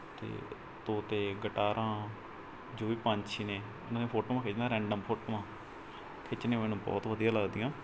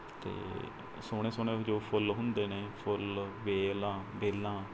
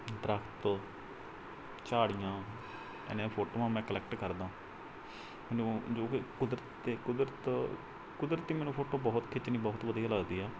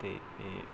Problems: background sounds at intervals